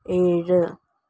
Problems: low volume